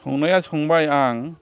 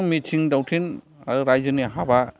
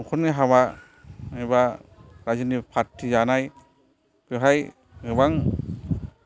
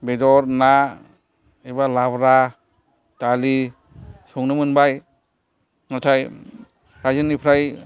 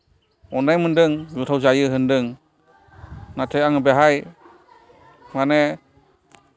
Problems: background sounds at intervals, background conversations at intervals